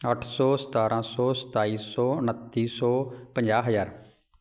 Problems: none marked